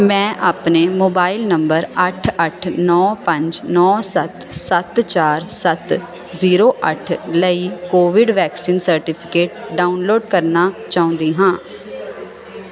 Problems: constant background noise